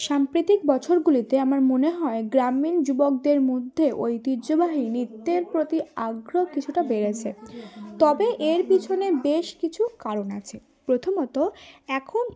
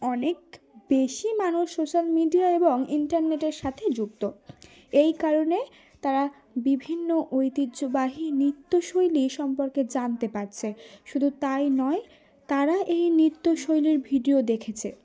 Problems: none marked